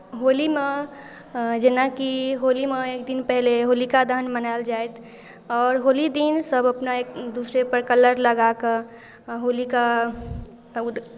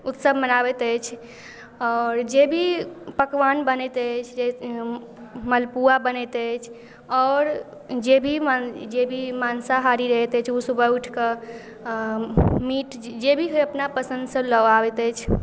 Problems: none marked